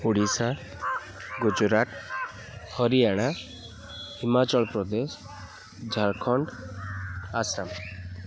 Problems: constant background noise, continuous background conversations